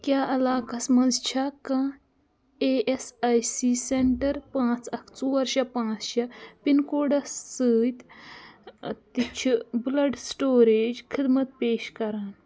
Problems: none marked